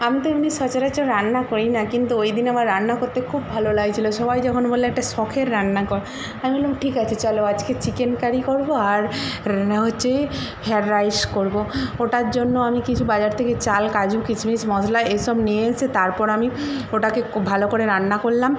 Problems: constant background noise